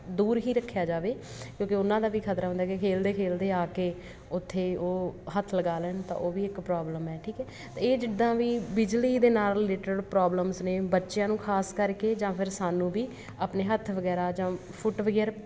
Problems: constant background noise